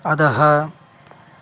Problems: constant background noise